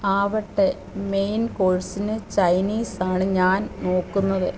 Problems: constant background noise